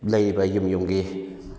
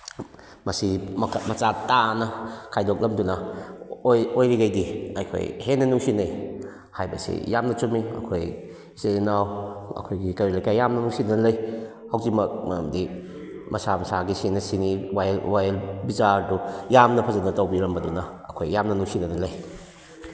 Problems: background sounds at intervals